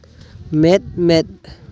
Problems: constant background noise